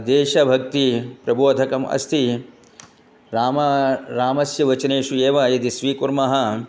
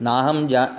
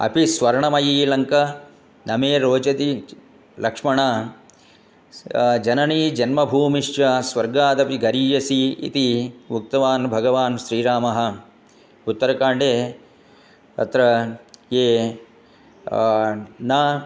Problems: none marked